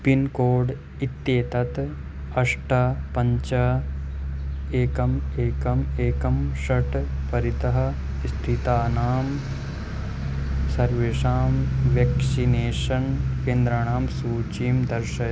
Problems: none marked